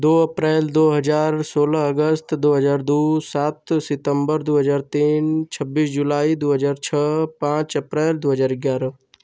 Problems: none marked